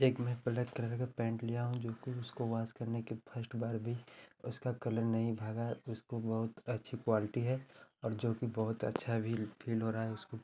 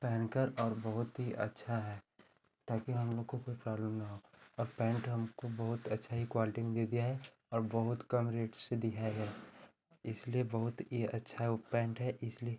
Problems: constant background noise, continuous background conversations